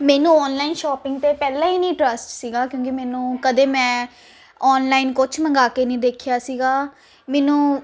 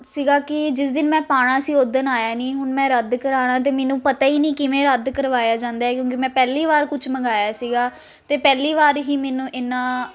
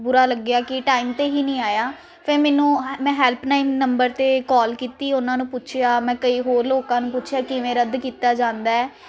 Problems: constant background noise